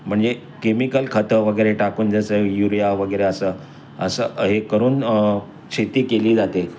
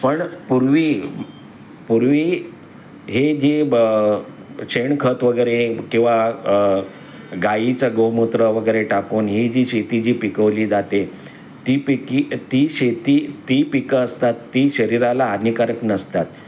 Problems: none marked